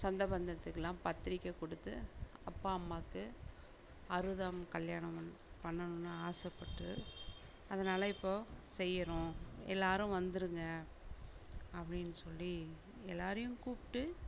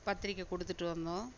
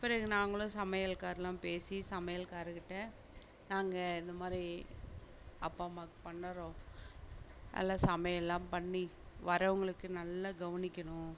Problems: background sounds at intervals, low volume